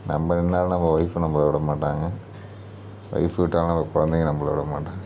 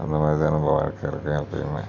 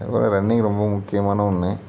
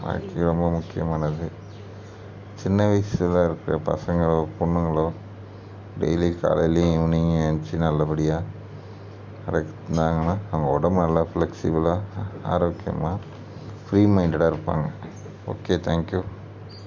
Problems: none marked